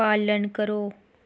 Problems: none marked